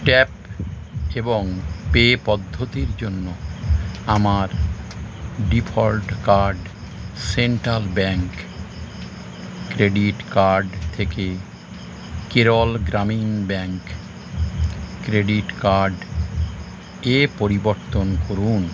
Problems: constant background noise